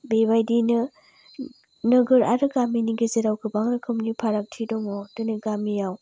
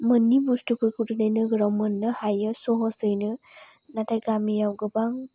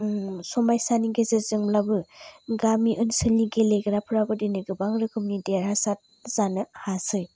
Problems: low volume